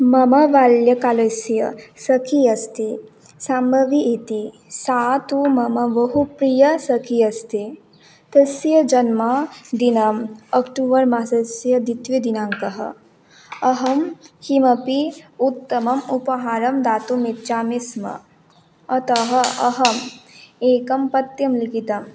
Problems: background sounds at intervals